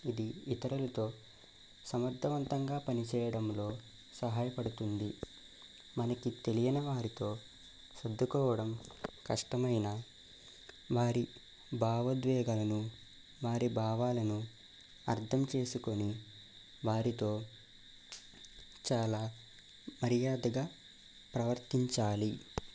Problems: none marked